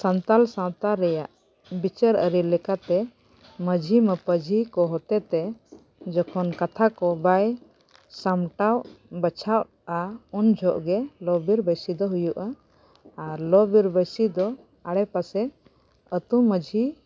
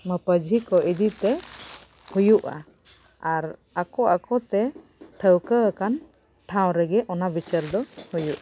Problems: background sounds at intervals